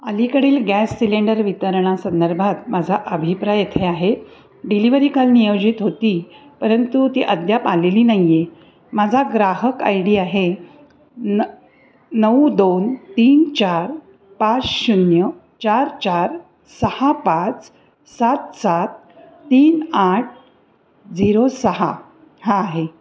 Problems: none marked